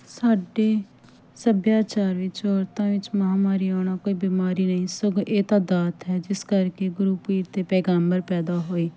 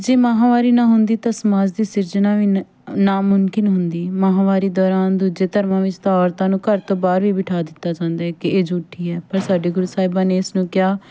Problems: background sounds at intervals